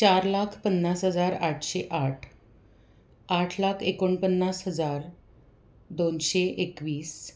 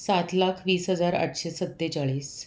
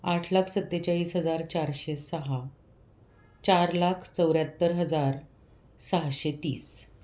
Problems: none marked